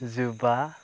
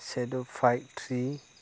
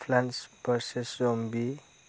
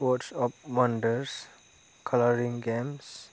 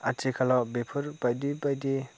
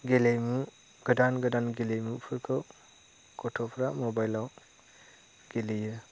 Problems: none marked